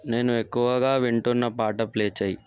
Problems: none marked